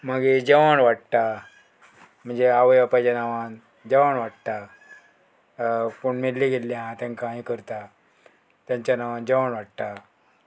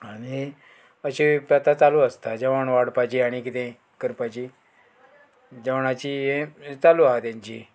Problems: background sounds at intervals